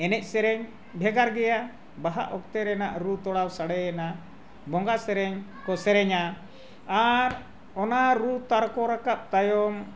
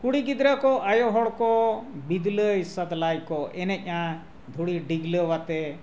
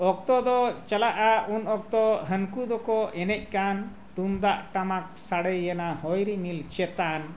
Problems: none marked